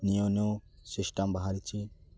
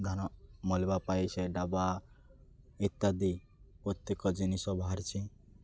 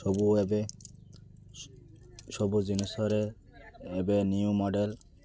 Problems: none marked